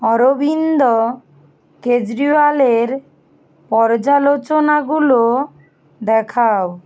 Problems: constant background noise